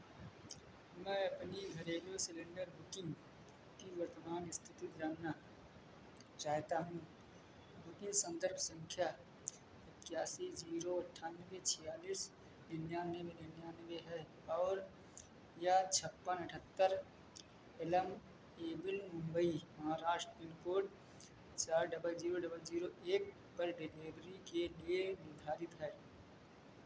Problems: none marked